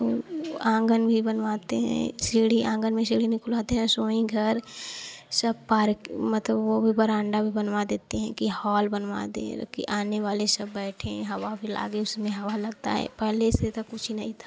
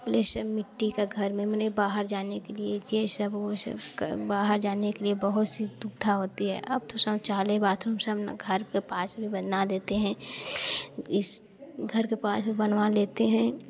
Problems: none marked